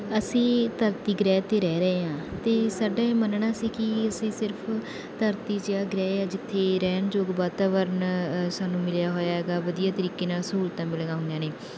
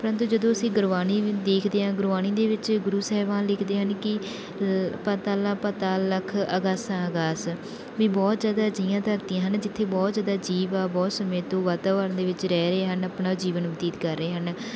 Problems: none marked